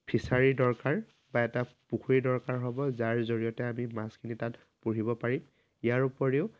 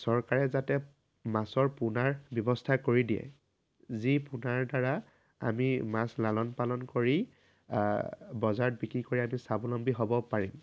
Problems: constant background noise